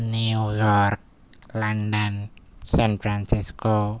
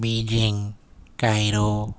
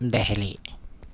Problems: none marked